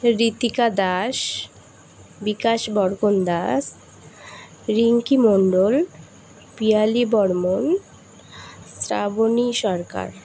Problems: none marked